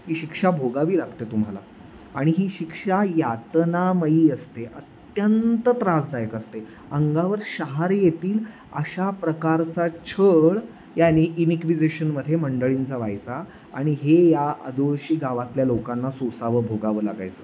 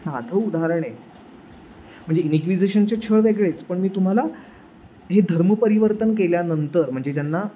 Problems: constant background noise